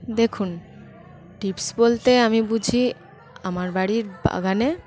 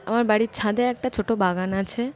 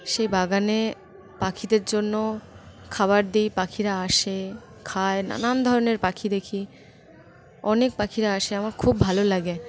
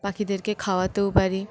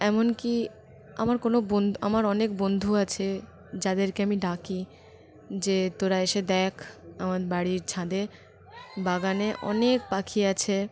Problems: constant background noise, background conversations at intervals